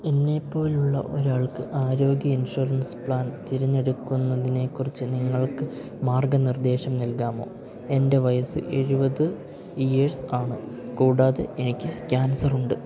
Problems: low volume